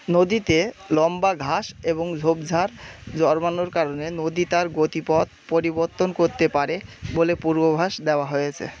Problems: constant background noise, background conversations at intervals